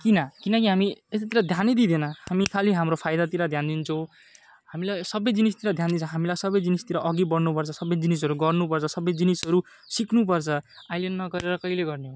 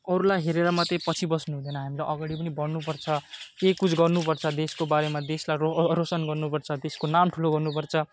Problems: none marked